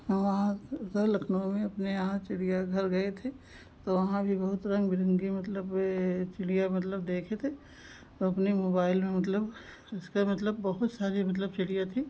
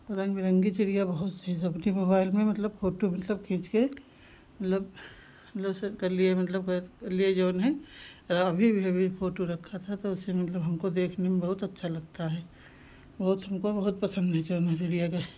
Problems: constant background noise